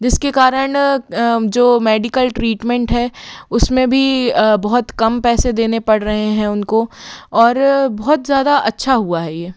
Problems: background sounds at intervals